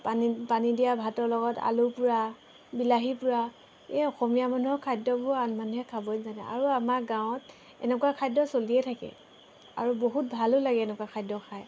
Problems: background sounds at intervals